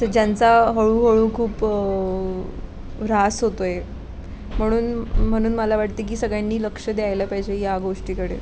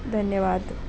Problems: constant background noise, continuous background conversations